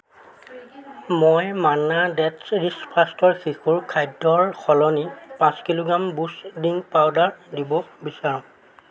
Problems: constant background noise, background conversations at intervals